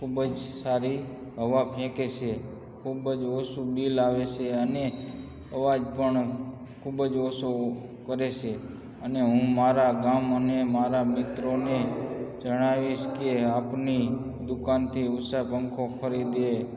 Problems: constant background noise, background conversations at intervals